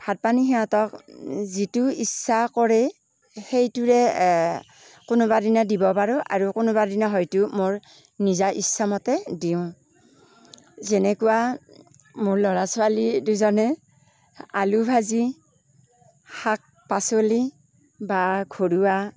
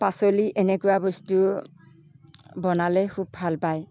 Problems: none marked